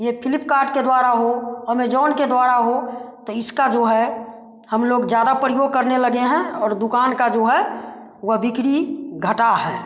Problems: constant background noise